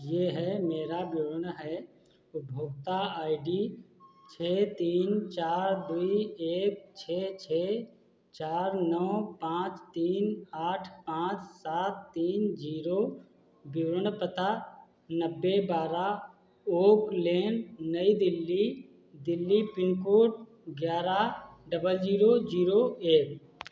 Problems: constant background noise